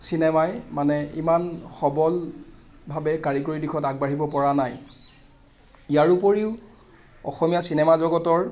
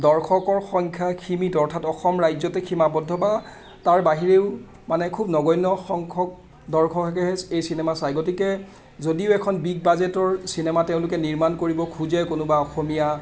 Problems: none marked